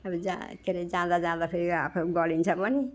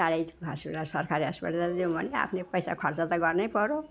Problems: none marked